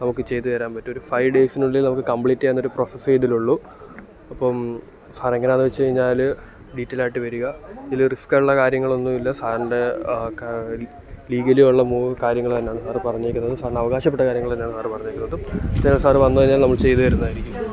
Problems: background conversations at intervals